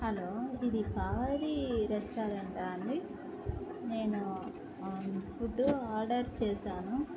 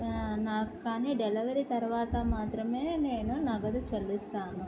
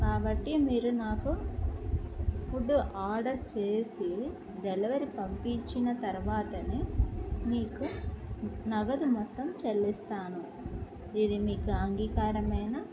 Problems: constant background noise, low volume